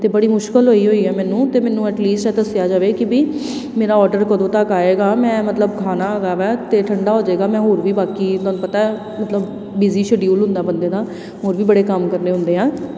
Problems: constant background noise